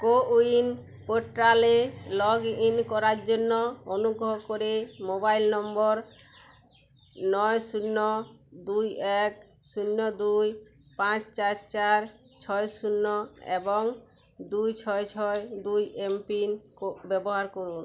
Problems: none marked